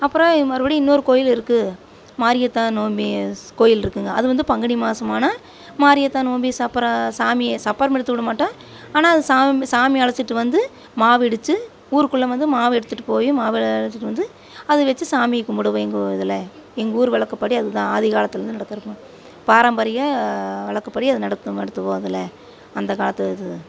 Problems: background sounds at intervals